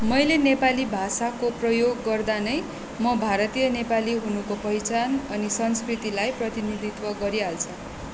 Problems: constant background noise